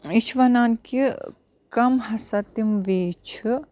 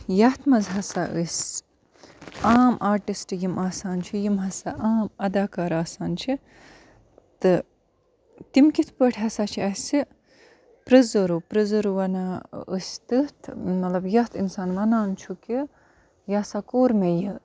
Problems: background sounds at intervals